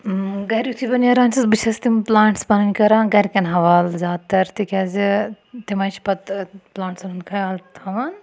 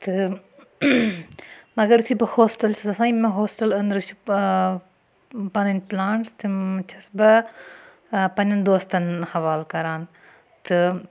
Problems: none marked